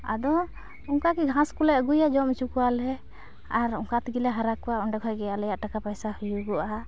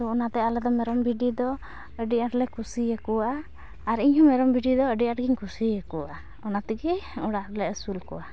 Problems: constant background noise